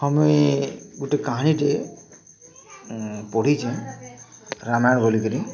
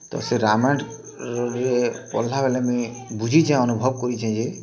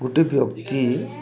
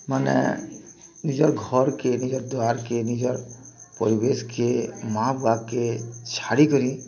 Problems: constant background noise, continuous background conversations